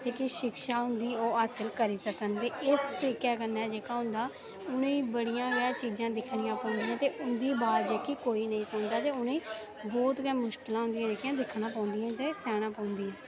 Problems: background sounds at intervals